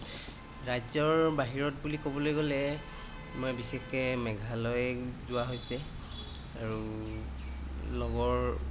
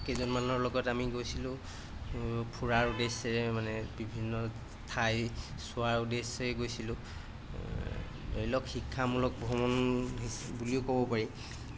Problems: background sounds at intervals